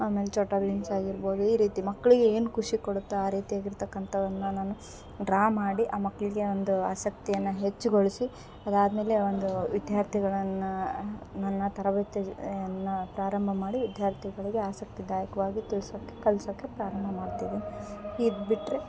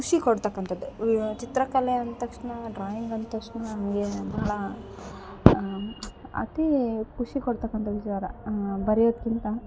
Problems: background sounds at intervals